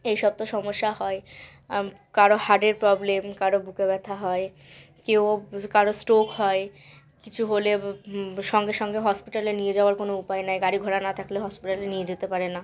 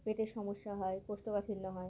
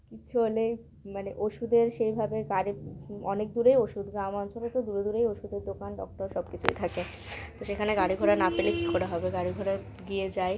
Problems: background sounds at intervals